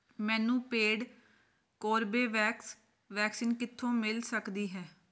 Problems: none marked